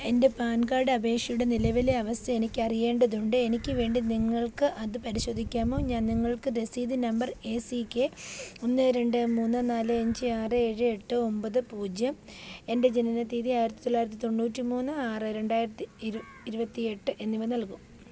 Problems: background sounds at intervals